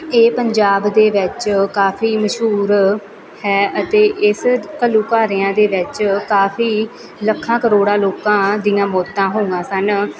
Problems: continuous background conversations